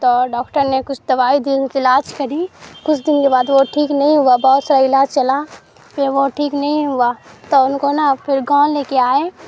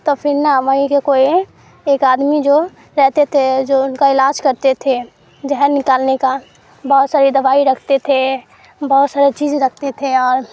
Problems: background sounds at intervals, background conversations at intervals